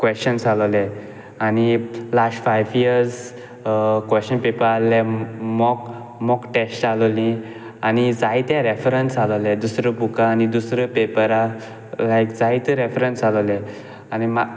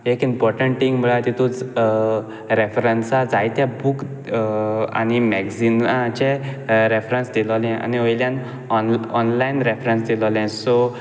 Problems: background sounds at intervals